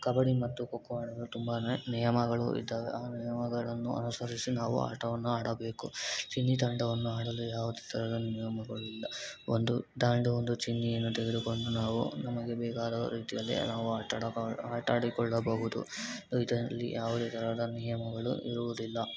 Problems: constant background noise